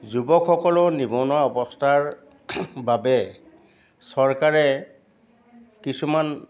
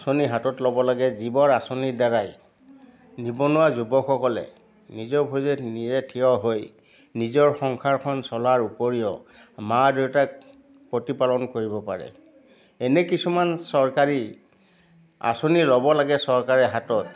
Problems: background conversations at intervals